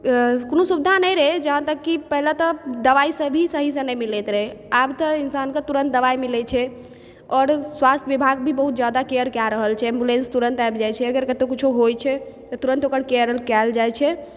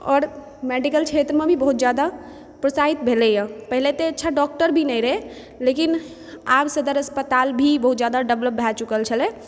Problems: background sounds at intervals